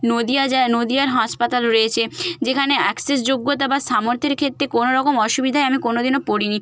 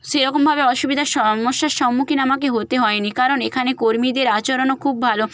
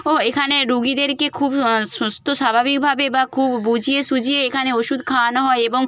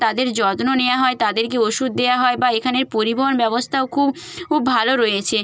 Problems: background sounds at intervals